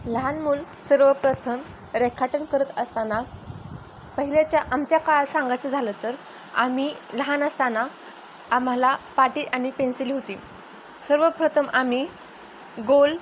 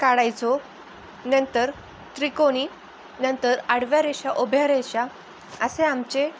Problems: none marked